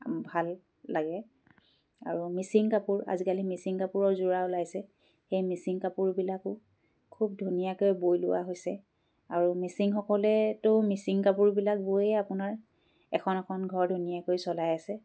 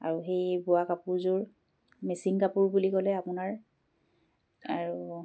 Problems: none marked